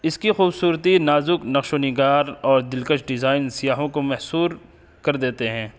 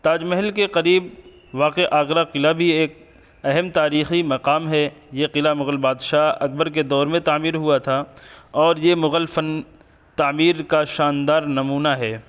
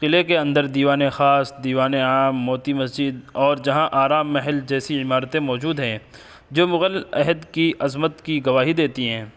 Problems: constant background noise